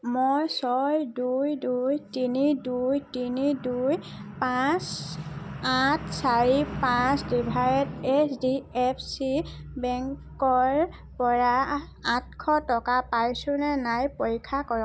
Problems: background sounds at intervals